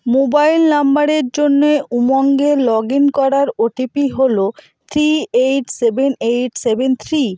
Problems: echo